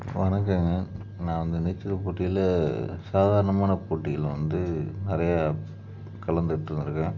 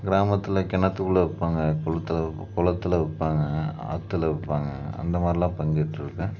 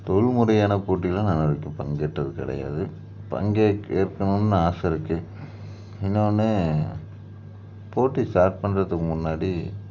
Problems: background sounds at intervals